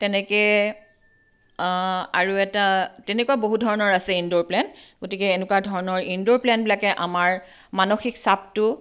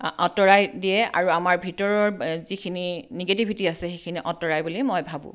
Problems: none marked